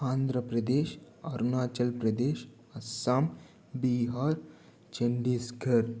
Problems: low volume